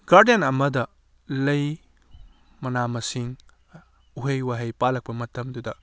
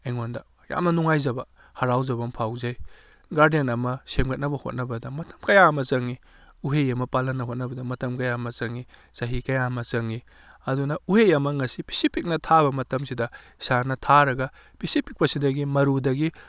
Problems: none marked